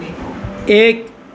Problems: none marked